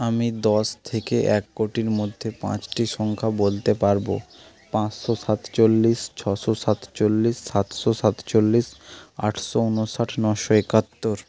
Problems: constant background noise